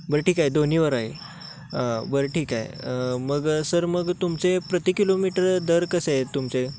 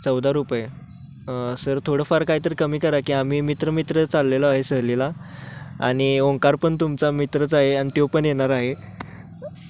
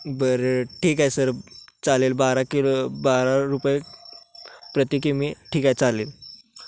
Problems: constant background noise